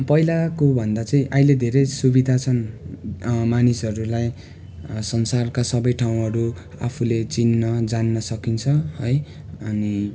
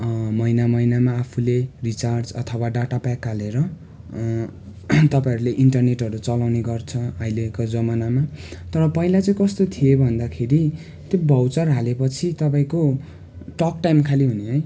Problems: constant background noise